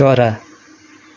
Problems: none marked